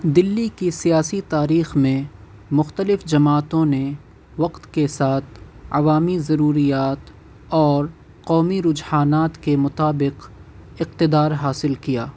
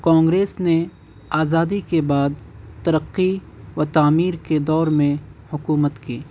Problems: constant background noise